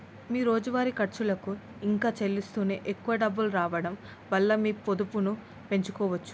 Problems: constant background noise